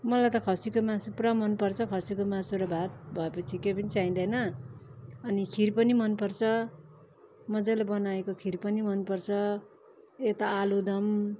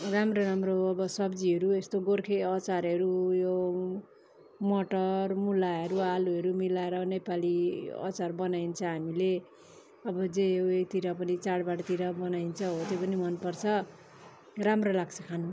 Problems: background sounds at intervals